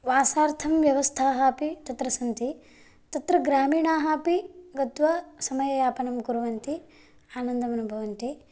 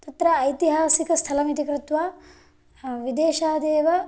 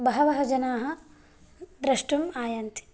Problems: none marked